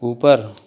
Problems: none marked